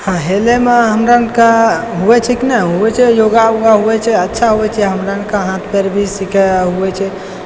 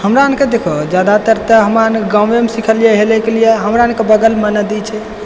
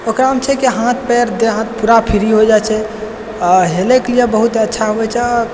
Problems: background sounds at intervals, echo